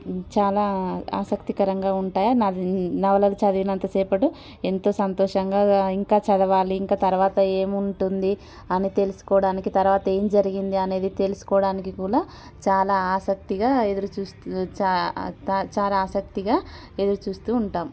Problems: constant background noise